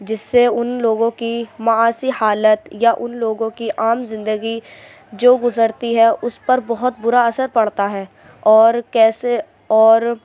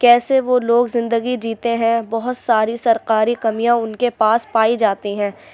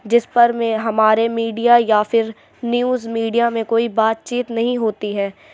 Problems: none marked